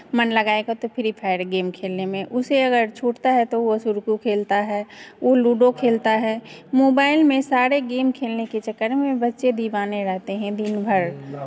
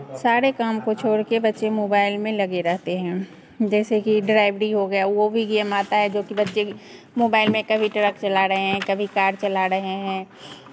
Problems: none marked